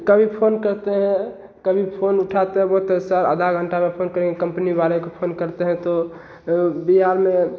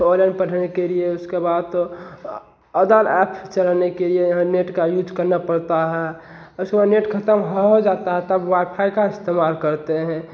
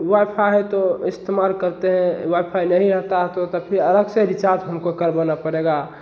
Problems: none marked